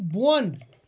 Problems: none marked